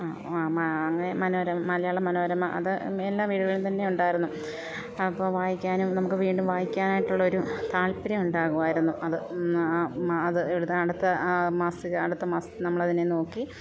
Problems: constant background noise